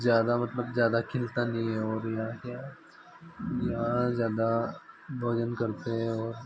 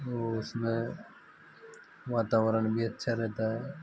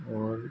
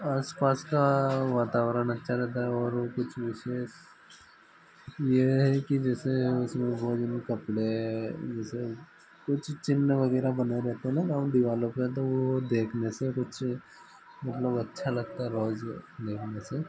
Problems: constant background noise